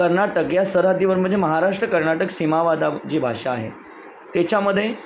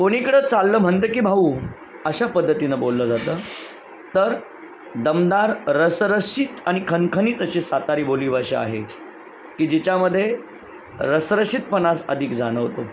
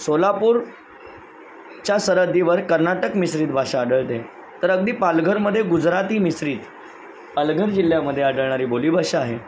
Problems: constant background noise